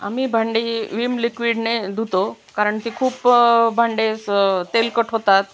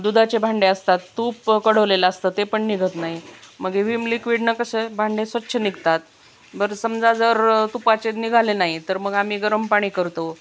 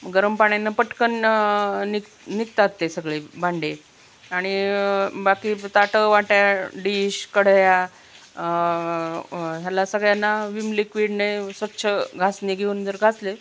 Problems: none marked